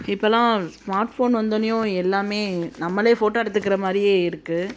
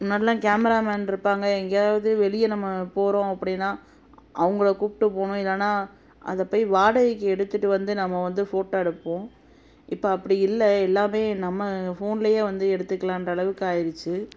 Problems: constant background noise